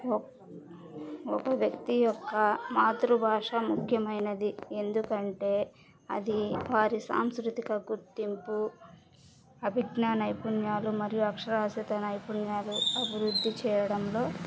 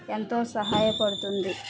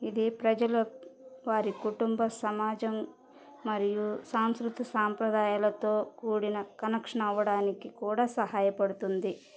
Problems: background sounds at intervals, background conversations at intervals